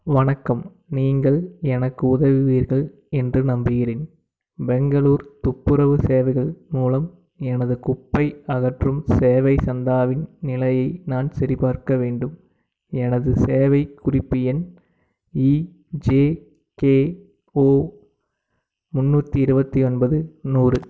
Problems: background sounds at intervals